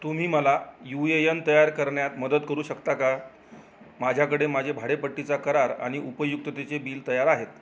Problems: none marked